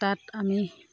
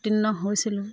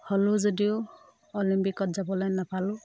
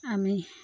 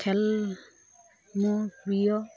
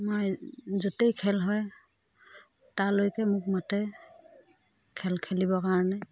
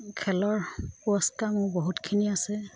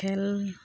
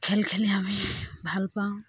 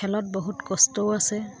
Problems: none marked